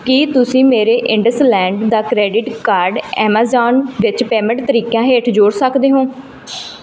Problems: background sounds at intervals